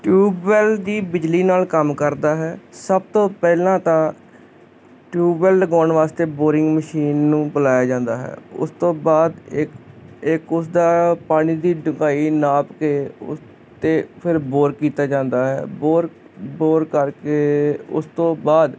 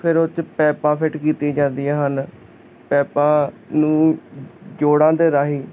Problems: constant background noise